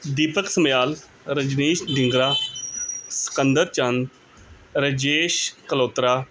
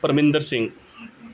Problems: none marked